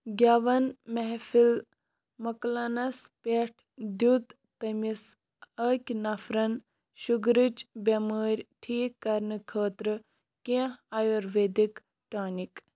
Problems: none marked